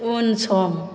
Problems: none marked